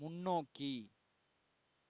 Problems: low volume